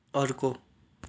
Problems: background sounds at intervals